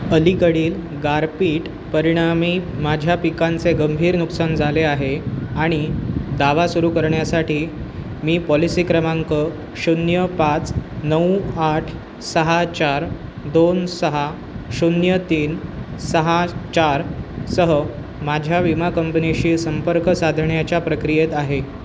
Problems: none marked